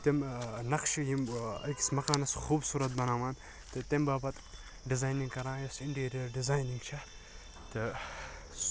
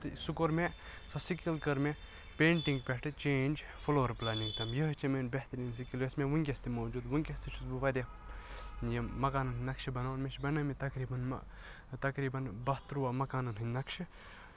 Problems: background sounds at intervals